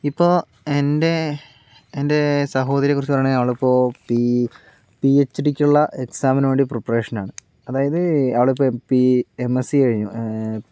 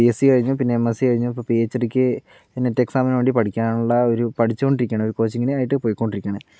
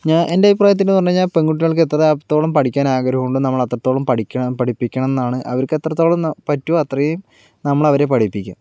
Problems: none marked